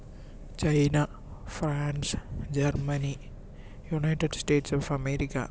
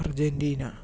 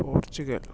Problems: none marked